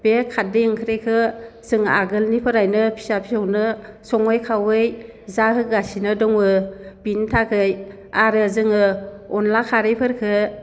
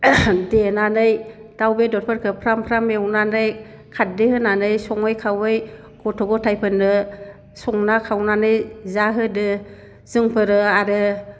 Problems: constant background noise